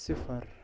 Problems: none marked